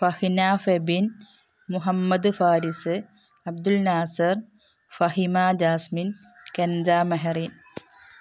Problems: background sounds at intervals